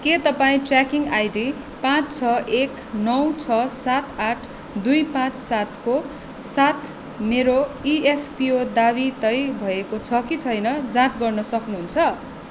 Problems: constant background noise